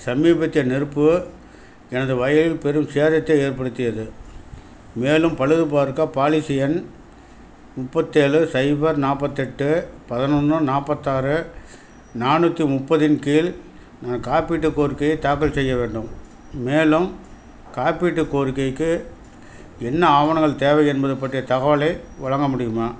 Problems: none marked